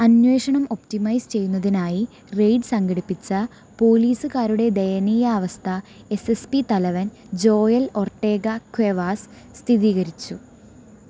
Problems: constant background noise